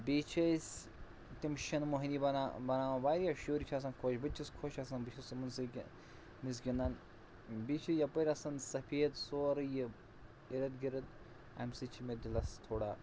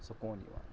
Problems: none marked